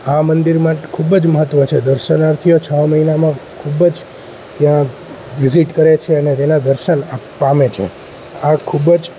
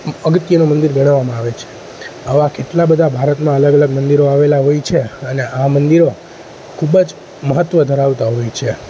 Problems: constant background noise